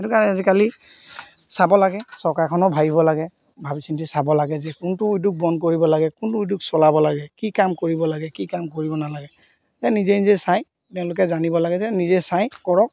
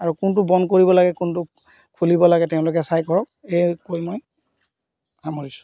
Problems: none marked